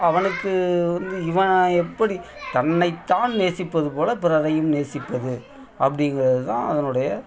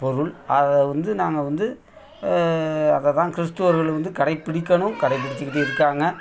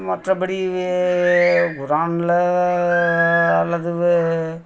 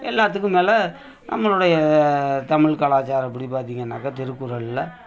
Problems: continuous background conversations